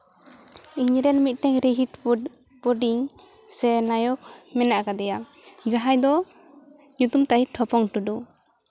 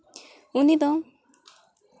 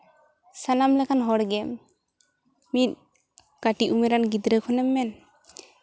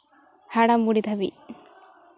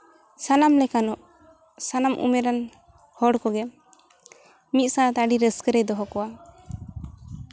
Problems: background sounds at intervals, background conversations at intervals